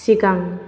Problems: constant background noise